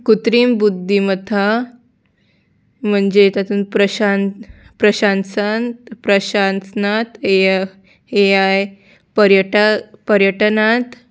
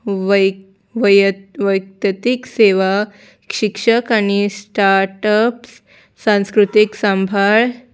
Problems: background sounds at intervals